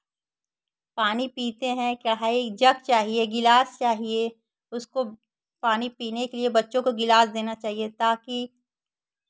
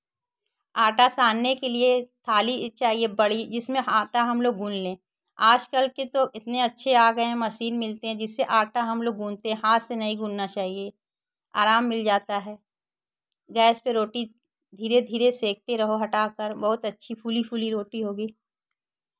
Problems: background sounds at intervals